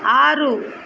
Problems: background sounds at intervals